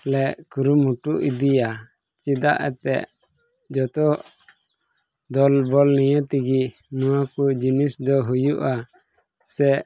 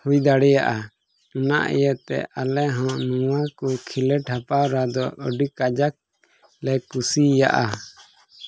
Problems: none marked